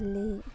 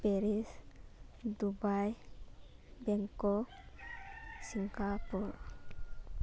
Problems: background sounds at intervals